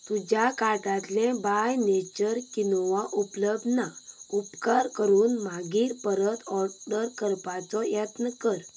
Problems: background sounds at intervals